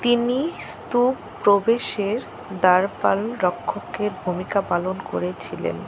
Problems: constant background noise